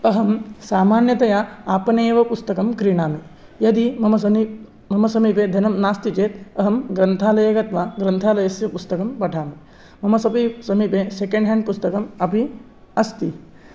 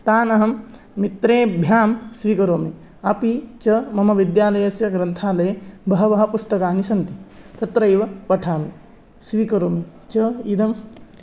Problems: none marked